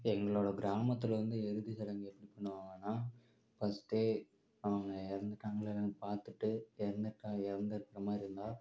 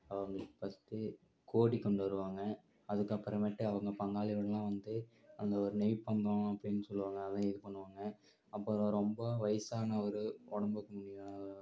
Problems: low volume